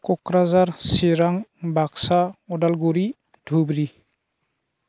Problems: constant background noise